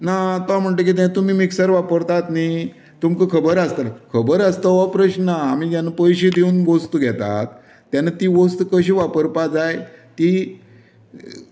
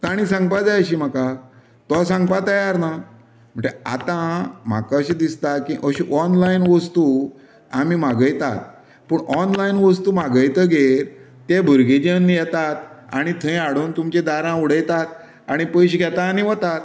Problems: constant background noise